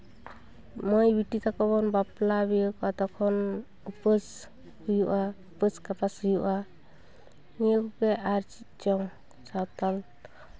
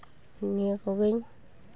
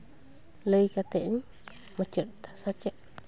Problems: background sounds at intervals, continuous background conversations